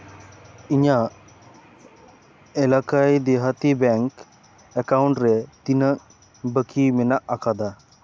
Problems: constant background noise